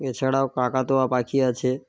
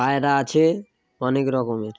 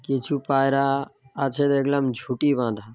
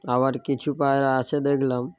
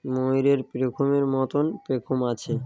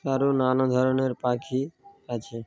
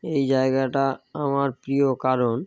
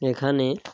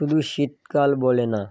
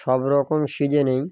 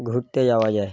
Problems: background sounds at intervals